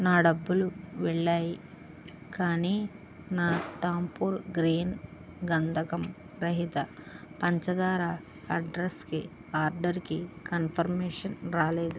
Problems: none marked